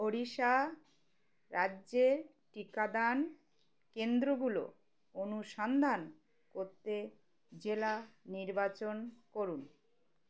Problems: constant background noise